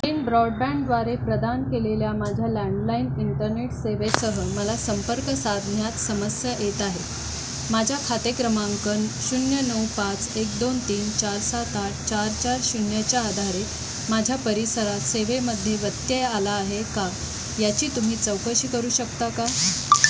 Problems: none marked